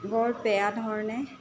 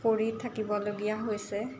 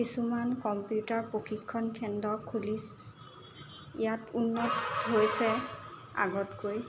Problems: constant background noise